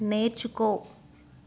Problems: constant background noise